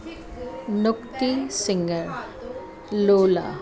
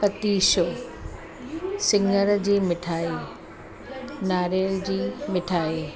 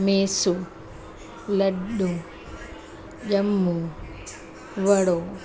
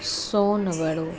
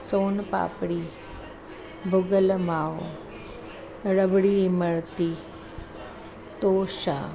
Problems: constant background noise, echo